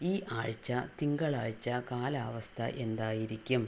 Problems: low volume